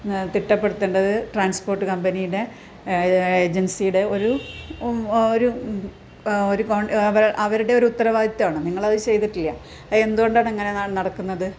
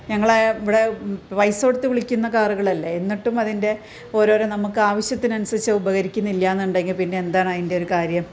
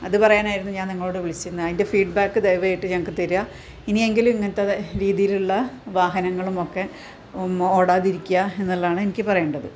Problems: background sounds at intervals